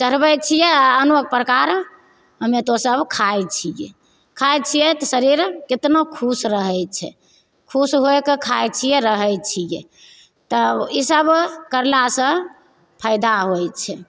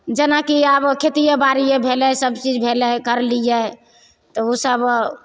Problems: none marked